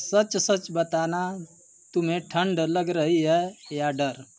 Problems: none marked